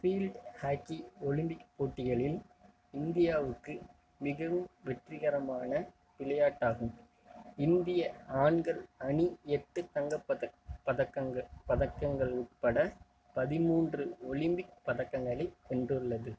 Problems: constant background noise